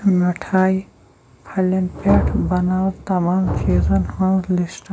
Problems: background sounds at intervals, low volume